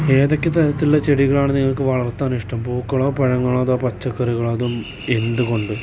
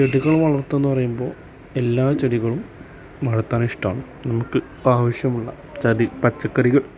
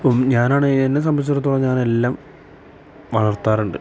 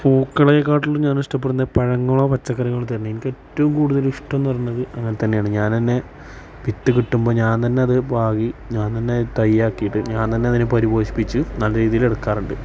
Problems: constant background noise